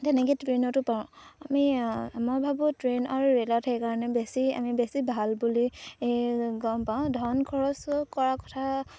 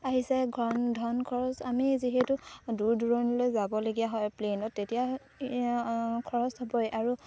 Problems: none marked